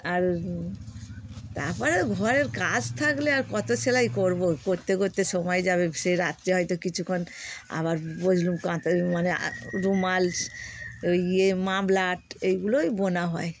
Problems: none marked